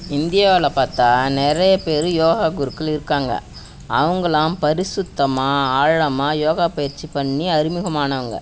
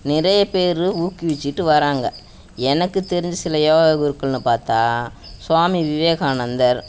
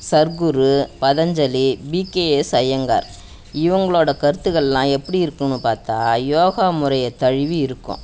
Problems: background sounds at intervals